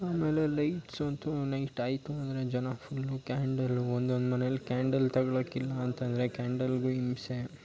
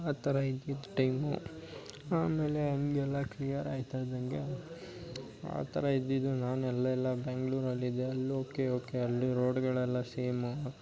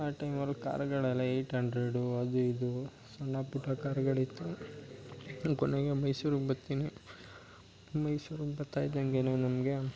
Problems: background sounds at intervals